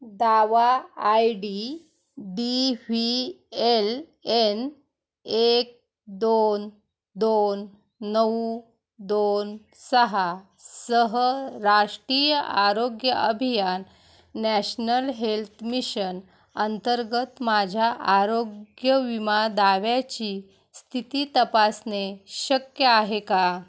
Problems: none marked